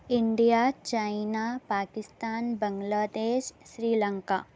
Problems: constant background noise